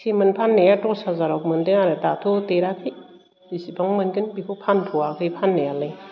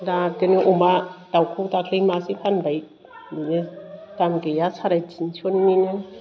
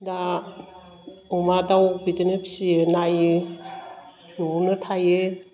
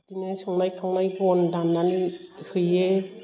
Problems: constant background noise